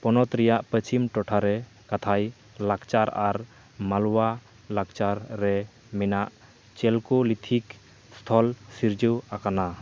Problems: none marked